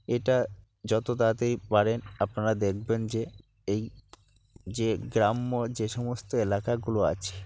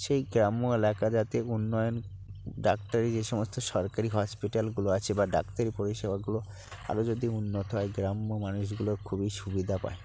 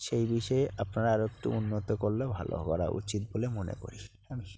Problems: none marked